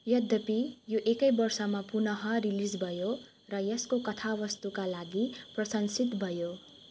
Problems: constant background noise